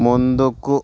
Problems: constant background noise